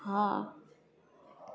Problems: none marked